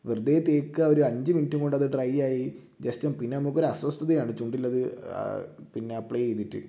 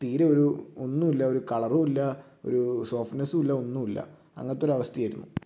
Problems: low volume